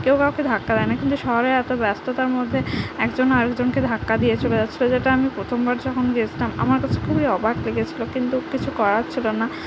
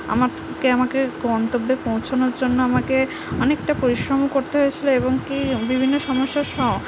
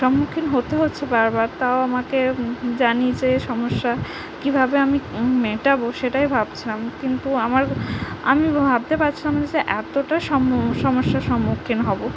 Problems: constant background noise, background conversations at intervals